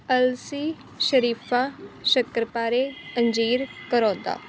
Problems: none marked